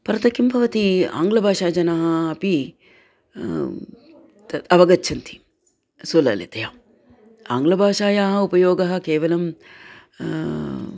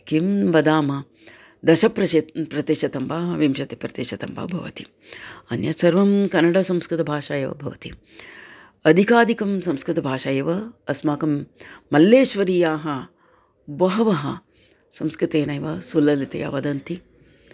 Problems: constant background noise, continuous background conversations